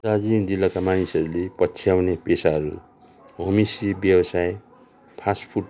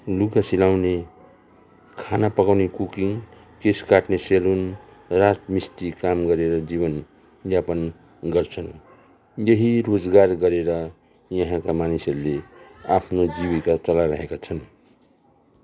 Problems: continuous background conversations